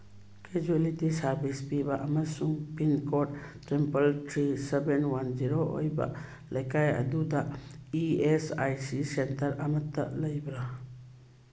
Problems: background sounds at intervals